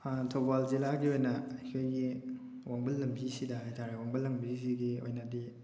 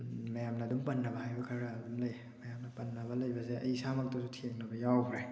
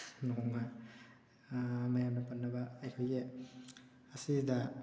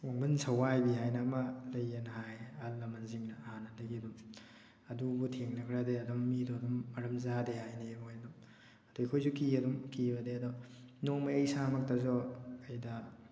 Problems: background sounds at intervals